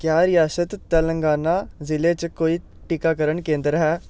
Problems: none marked